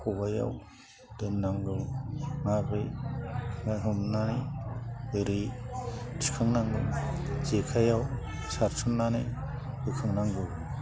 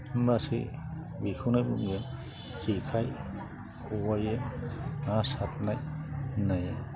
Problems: constant background noise